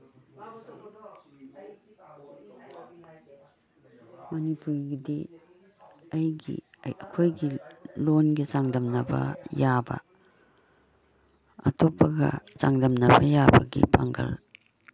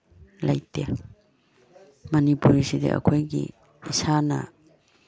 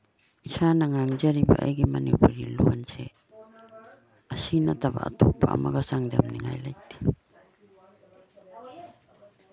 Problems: background sounds at intervals, background conversations at intervals